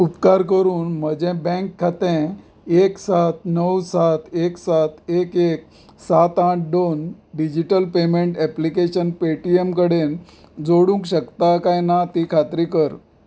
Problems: background sounds at intervals